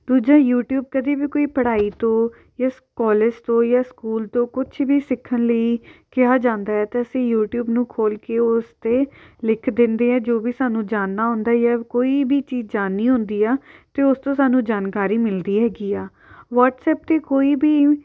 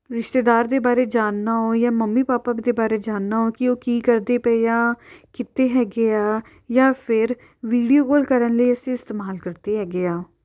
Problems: none marked